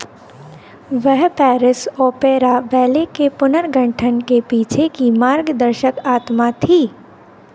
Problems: none marked